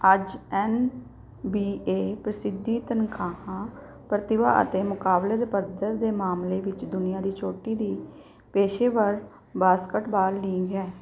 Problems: background sounds at intervals